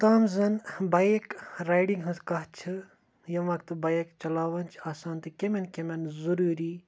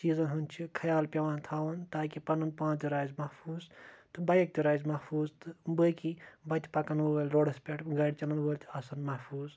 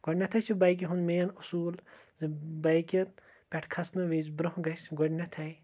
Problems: none marked